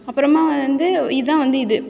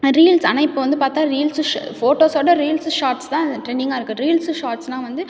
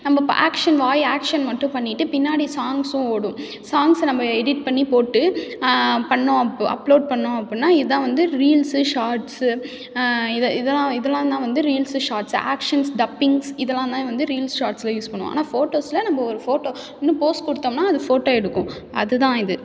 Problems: background sounds at intervals